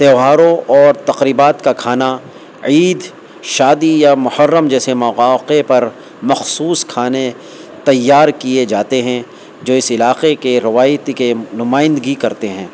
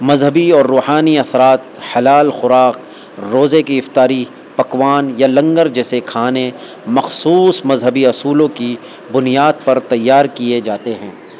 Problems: constant background noise